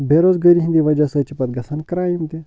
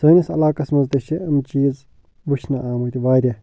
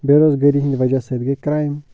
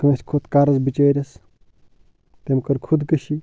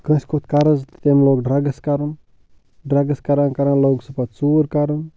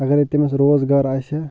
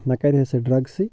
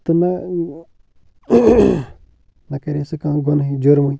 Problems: low volume